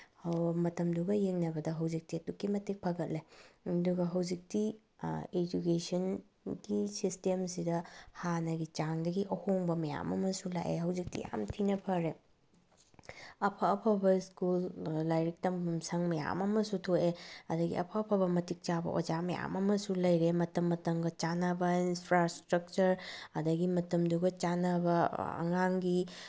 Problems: background sounds at intervals